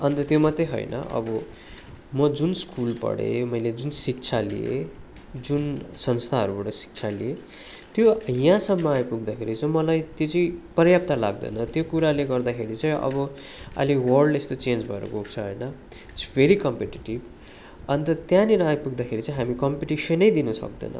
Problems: continuous background conversations